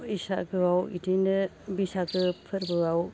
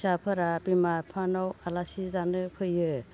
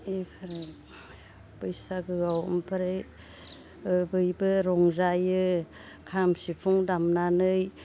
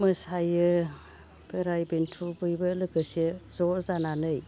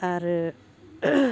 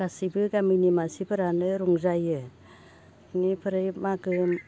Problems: low volume